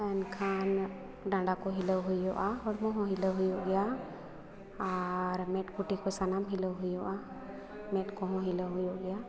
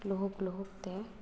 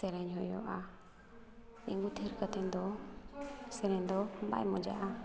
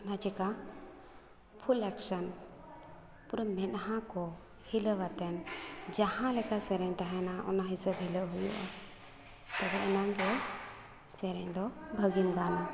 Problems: background conversations at intervals